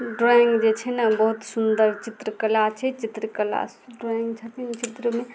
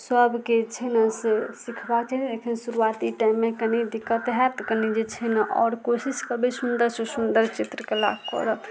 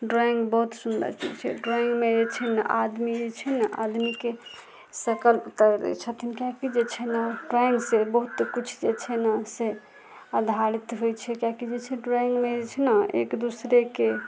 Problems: background sounds at intervals